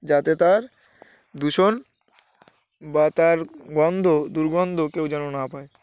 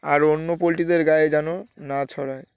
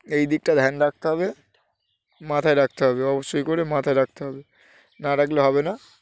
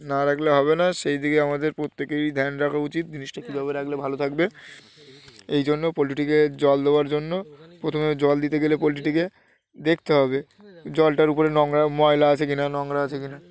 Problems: none marked